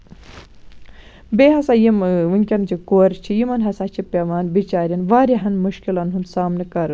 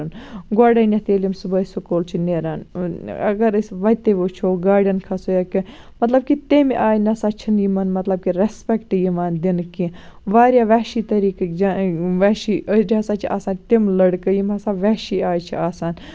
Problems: constant background noise